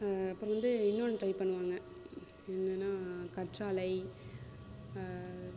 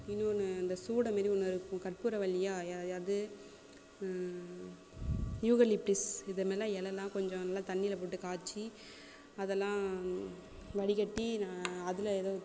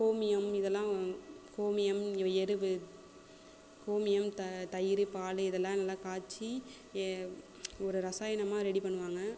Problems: constant background noise